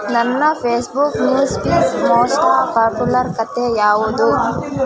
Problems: continuous background conversations